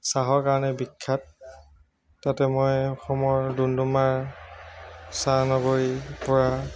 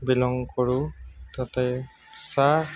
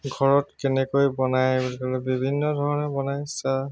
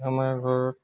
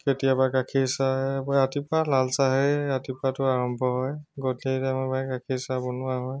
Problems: constant background noise, background conversations at intervals